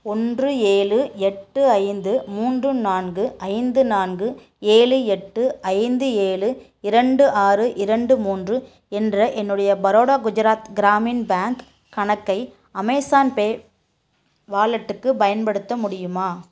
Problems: none marked